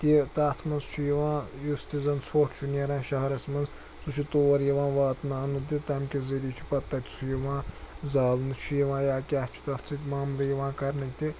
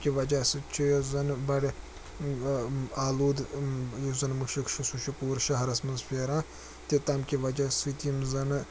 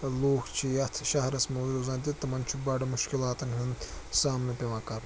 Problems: constant background noise